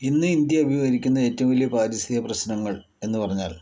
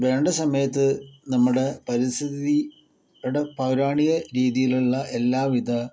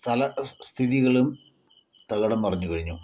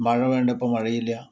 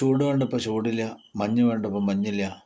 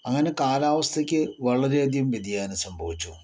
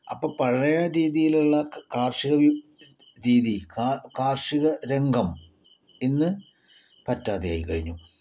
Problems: none marked